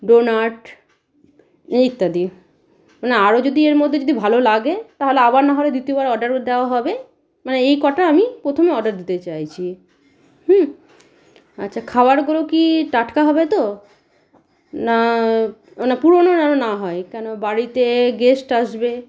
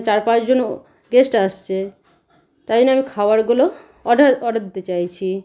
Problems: none marked